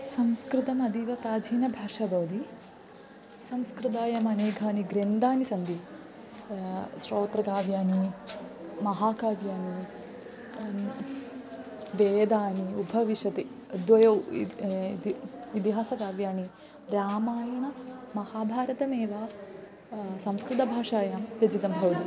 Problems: constant background noise, continuous background conversations